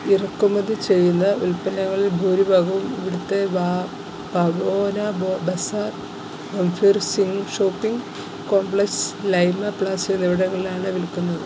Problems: none marked